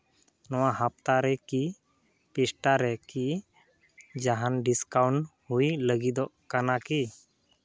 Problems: none marked